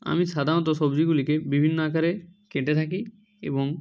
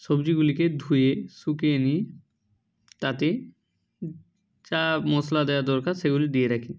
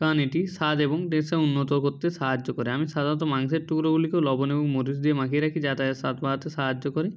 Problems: background sounds at intervals